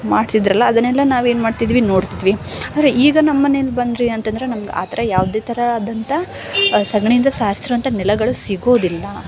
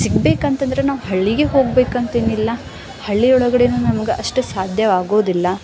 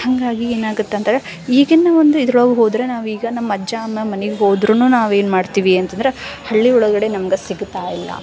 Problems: background sounds at intervals